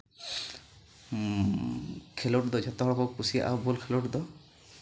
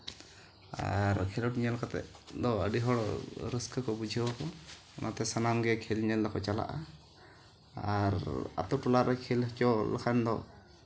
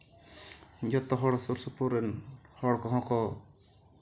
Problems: none marked